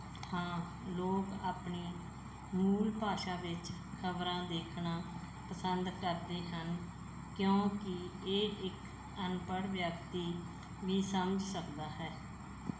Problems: background sounds at intervals